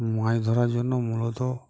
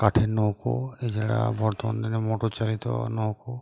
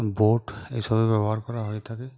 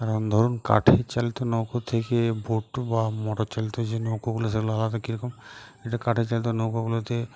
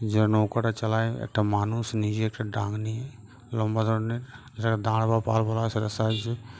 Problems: constant background noise